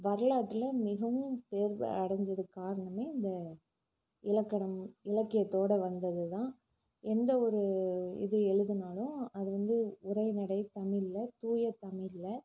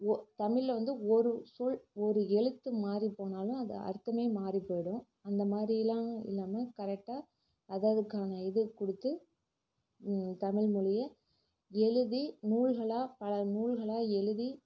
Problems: low volume